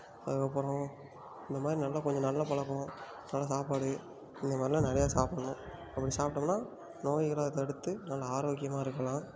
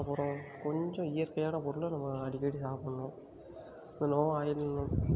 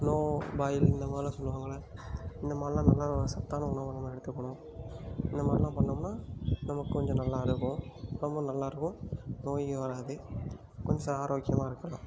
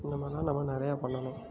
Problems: background sounds at intervals, background conversations at intervals